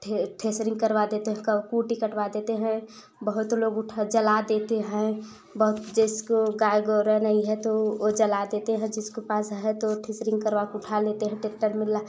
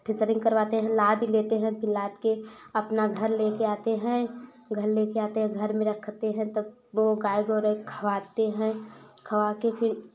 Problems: none marked